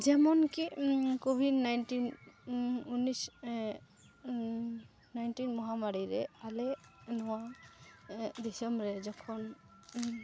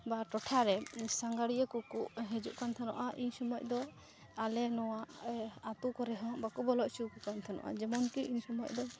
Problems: background sounds at intervals, low volume